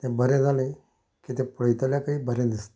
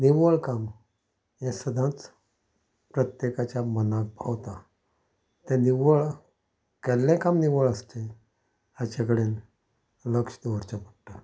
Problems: background sounds at intervals, low volume